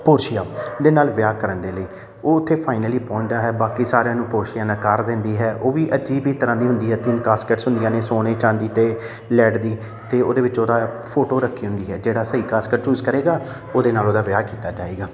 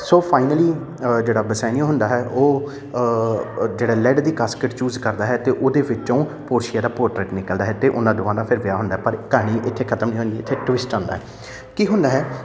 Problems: none marked